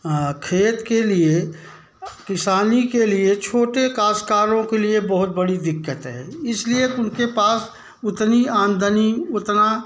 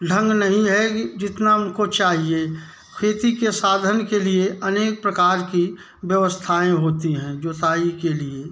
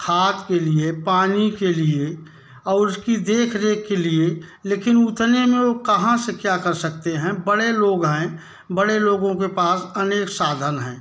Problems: background sounds at intervals